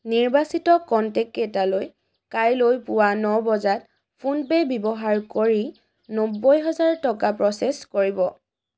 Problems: none marked